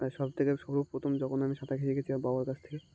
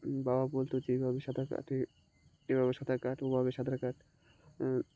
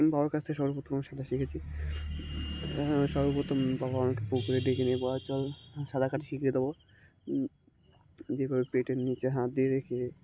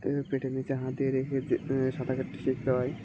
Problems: constant background noise